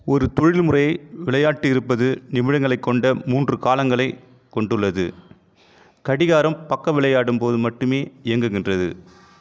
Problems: constant background noise